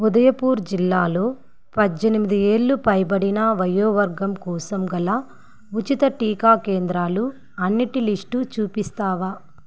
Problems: constant background noise